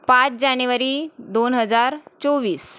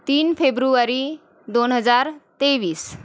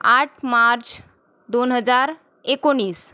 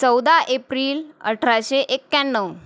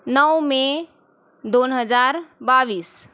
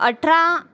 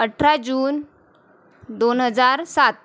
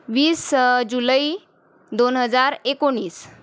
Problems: constant background noise